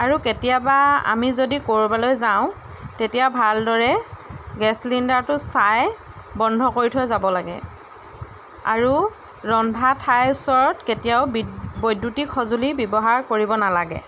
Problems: none marked